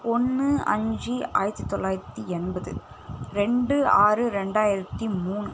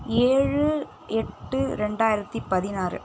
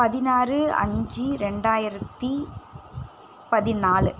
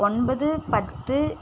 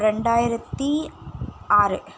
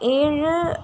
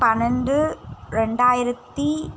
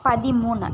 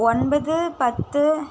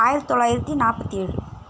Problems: constant background noise